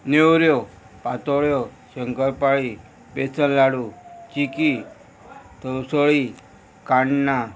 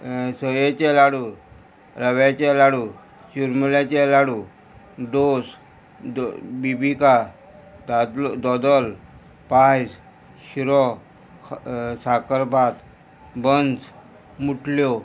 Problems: constant background noise